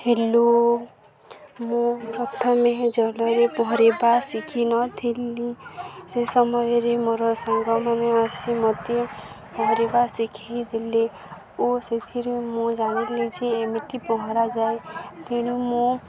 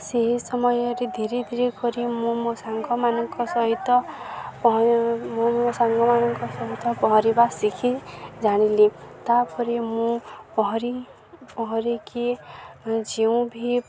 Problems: constant background noise, continuous background conversations